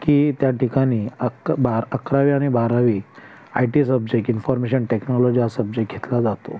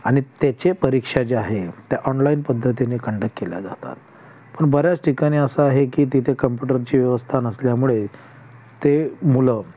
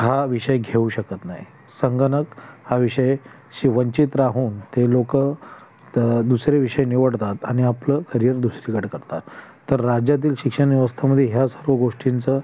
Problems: constant background noise